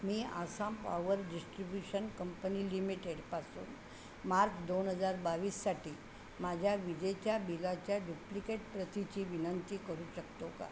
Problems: none marked